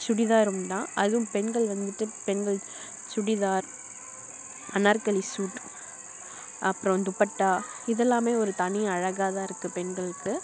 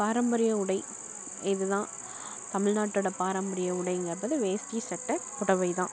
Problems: none marked